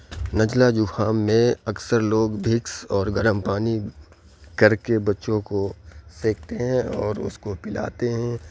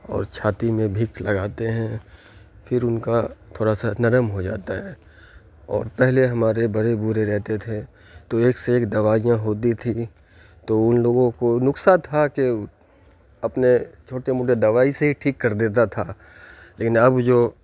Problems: constant background noise